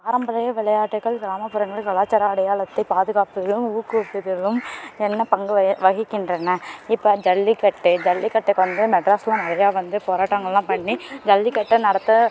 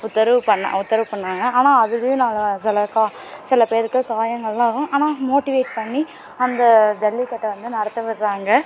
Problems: continuous background conversations